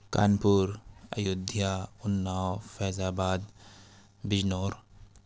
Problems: none marked